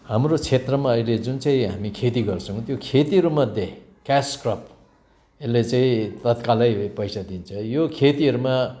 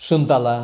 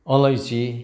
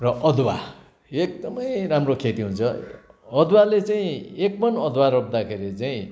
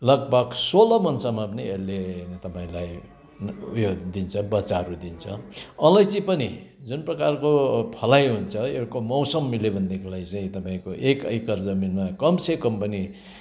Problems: background sounds at intervals